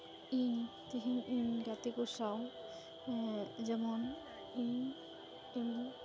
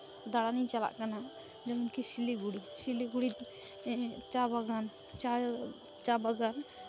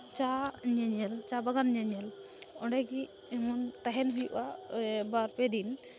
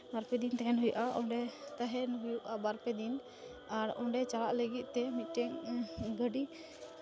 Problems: constant background noise